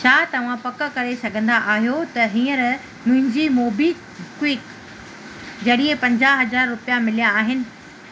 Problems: constant background noise